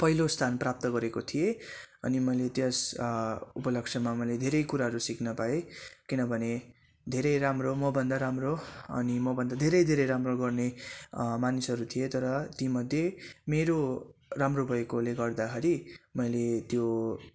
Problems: none marked